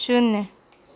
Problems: none marked